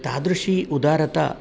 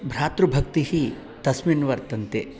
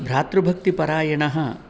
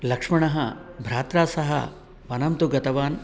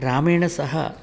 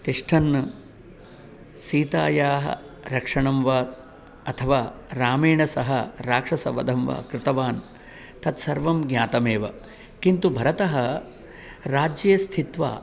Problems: none marked